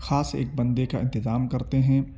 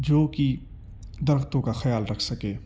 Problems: none marked